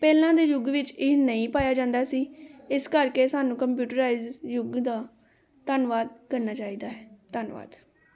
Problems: background conversations at intervals